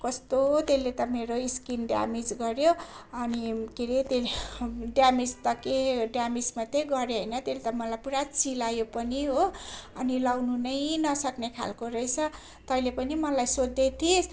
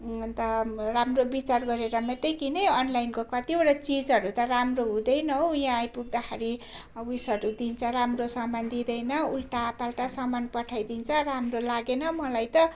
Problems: constant background noise